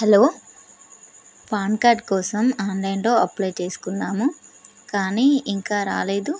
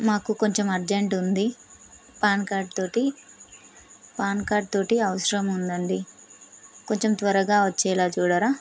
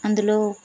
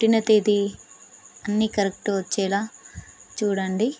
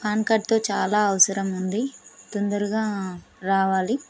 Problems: constant background noise